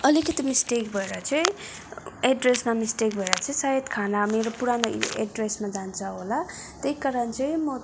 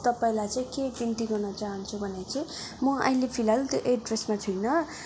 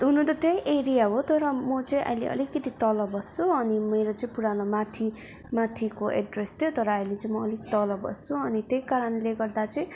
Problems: constant background noise, background conversations at intervals